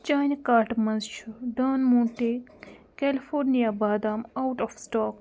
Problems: none marked